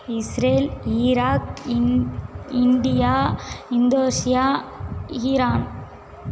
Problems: constant background noise